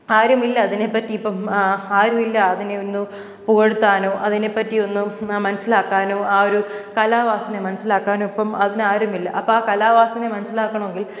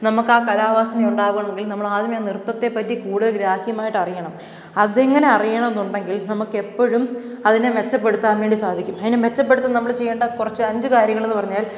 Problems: none marked